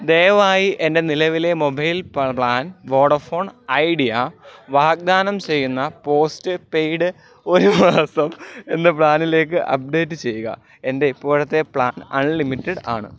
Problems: background sounds at intervals